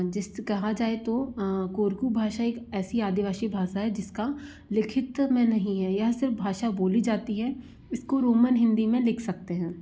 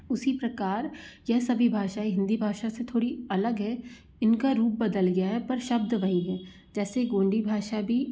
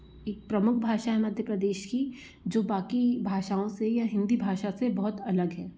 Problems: constant background noise